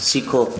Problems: none marked